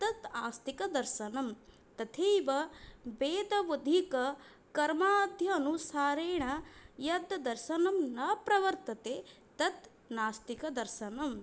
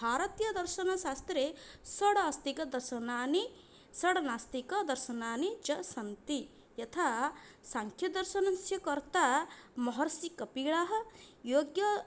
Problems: none marked